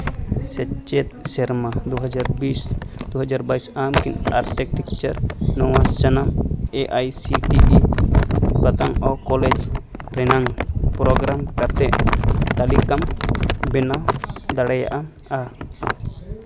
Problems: constant background noise